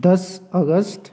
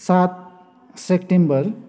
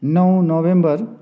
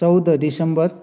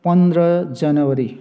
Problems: none marked